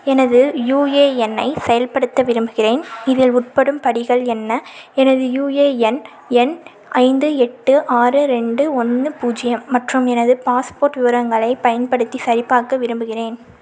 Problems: none marked